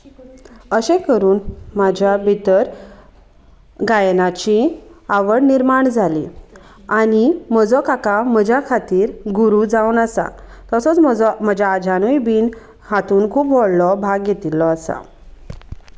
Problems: none marked